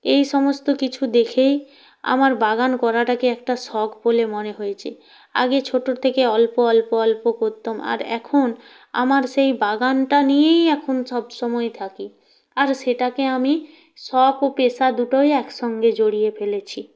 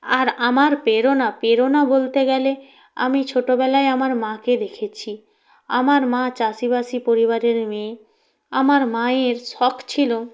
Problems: none marked